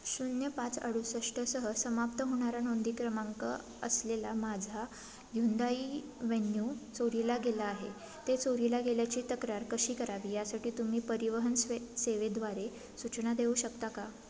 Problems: constant background noise, background conversations at intervals